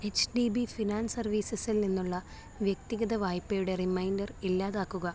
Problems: low volume